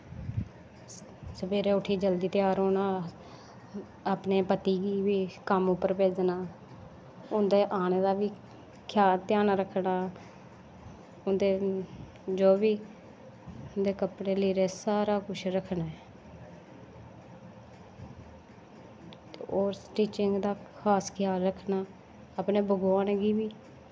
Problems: constant background noise, low volume